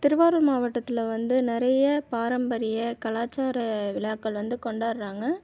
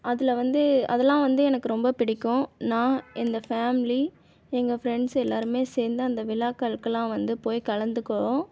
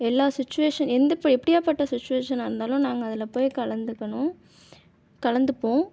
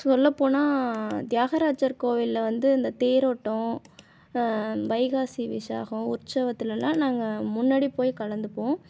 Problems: none marked